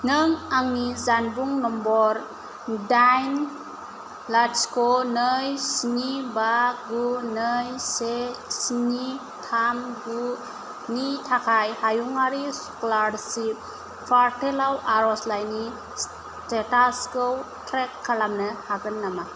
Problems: none marked